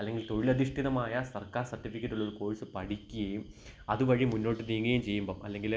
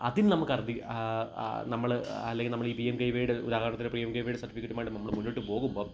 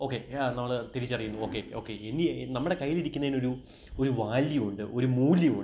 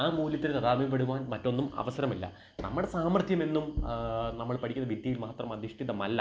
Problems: background sounds at intervals